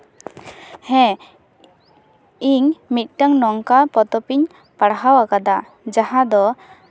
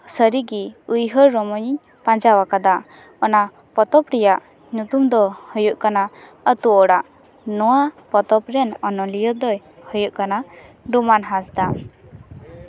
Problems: none marked